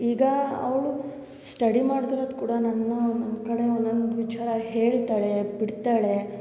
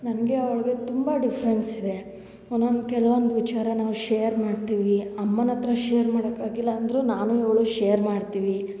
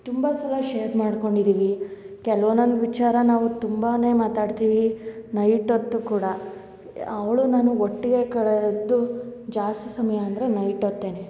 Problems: none marked